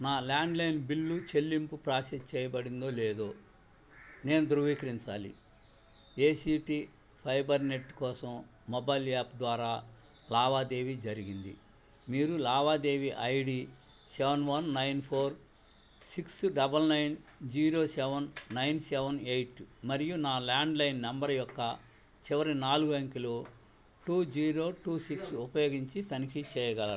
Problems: background sounds at intervals, low volume